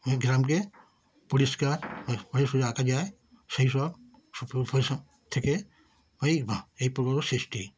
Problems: constant background noise, continuous background conversations